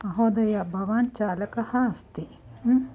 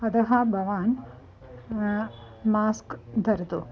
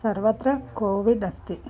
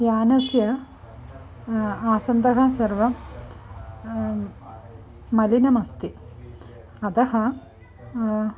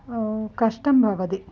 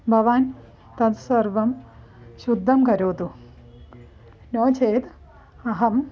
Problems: background sounds at intervals, continuous background conversations